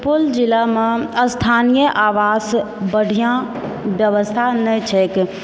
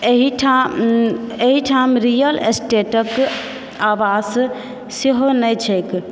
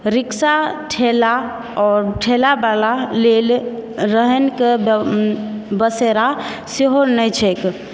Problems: background sounds at intervals